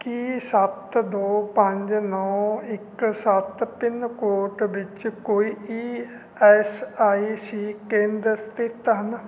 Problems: none marked